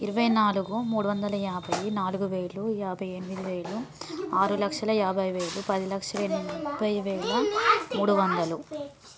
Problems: background conversations at intervals